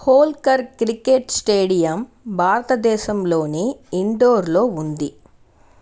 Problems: none marked